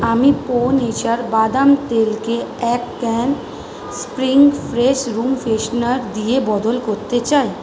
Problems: none marked